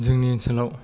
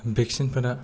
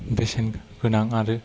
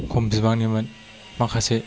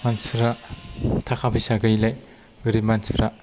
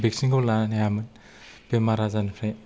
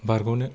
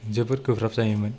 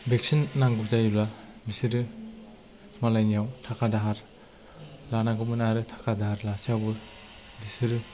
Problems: low volume